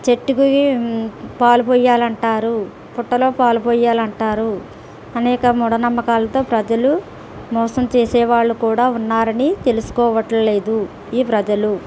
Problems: constant background noise